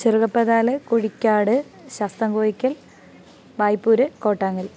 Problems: background sounds at intervals